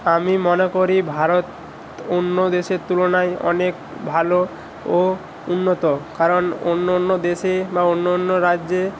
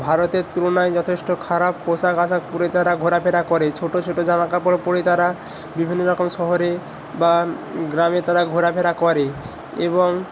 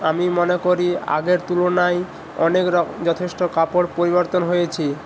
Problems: constant background noise